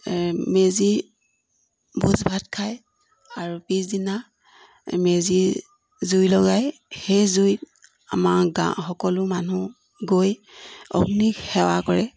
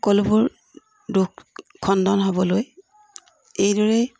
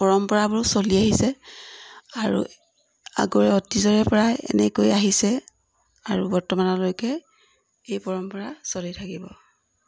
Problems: background sounds at intervals